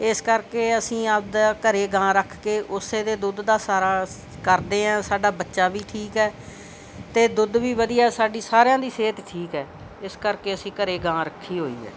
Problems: constant background noise